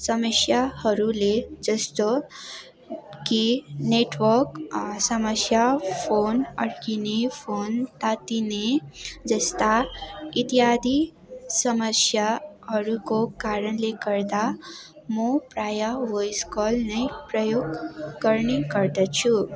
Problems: constant background noise